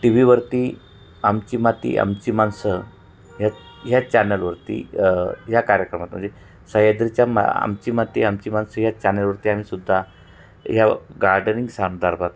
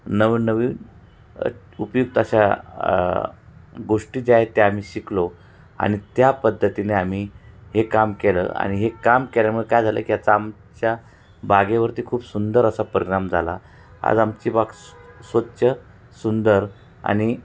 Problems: none marked